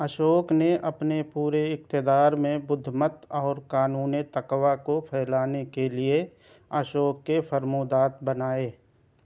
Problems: none marked